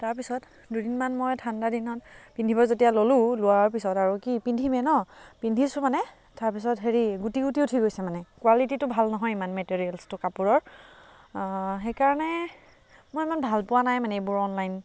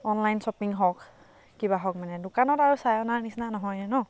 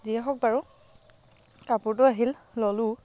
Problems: constant background noise